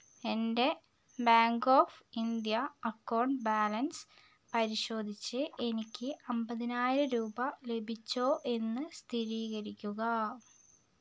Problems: none marked